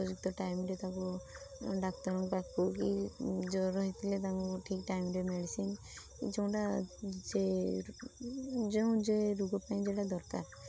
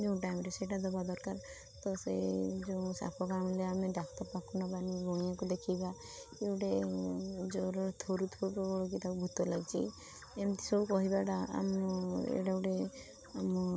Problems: constant background noise